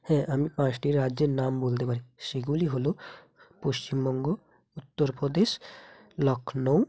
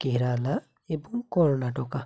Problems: none marked